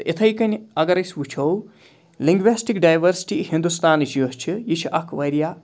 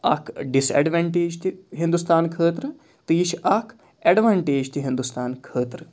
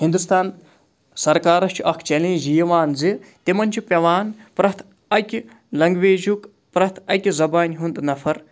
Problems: background sounds at intervals